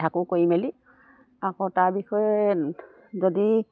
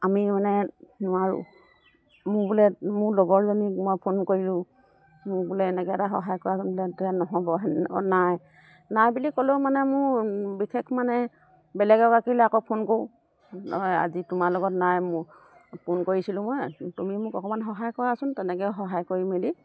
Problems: none marked